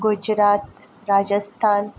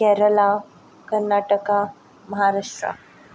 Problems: background sounds at intervals